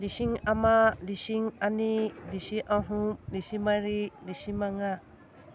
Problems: background sounds at intervals